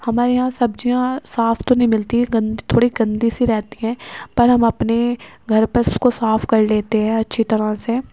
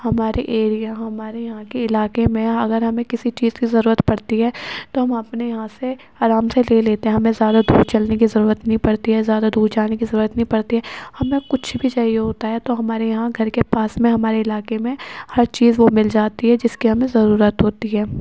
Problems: background sounds at intervals